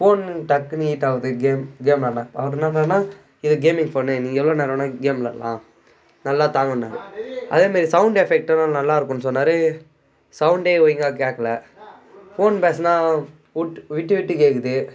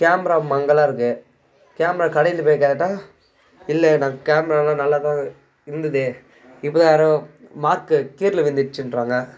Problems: constant background noise, background conversations at intervals